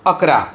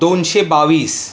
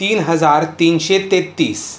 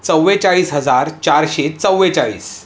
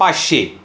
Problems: constant background noise